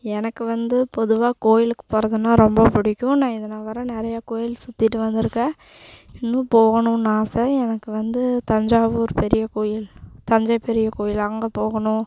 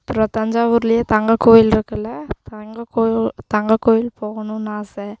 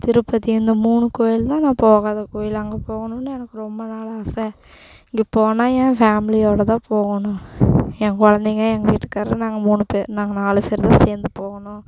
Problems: constant background noise